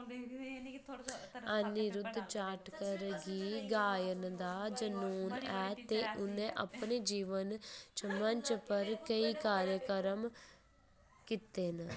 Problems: constant background noise